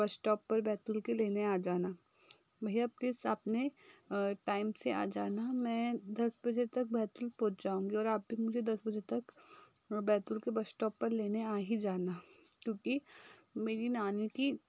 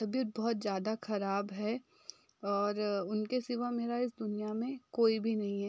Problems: background sounds at intervals